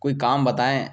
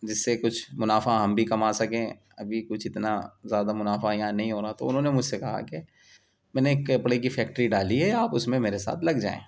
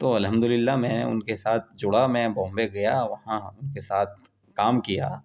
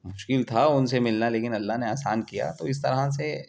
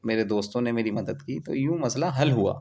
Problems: constant background noise